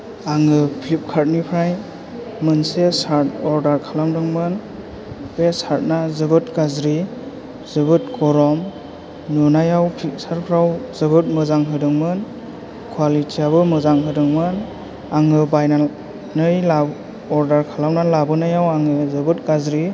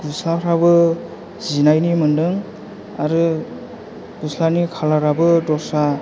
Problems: low volume